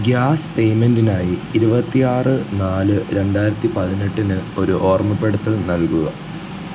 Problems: constant background noise, low volume